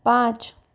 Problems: none marked